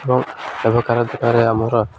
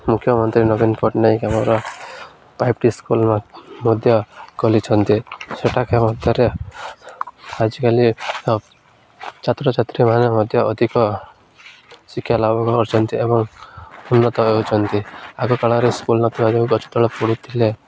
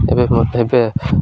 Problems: none marked